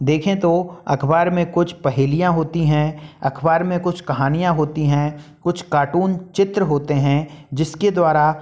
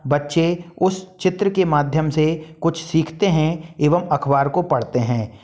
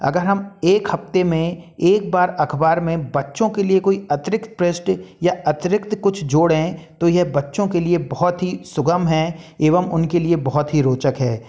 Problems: none marked